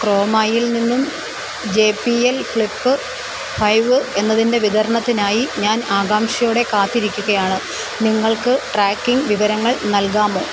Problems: constant background noise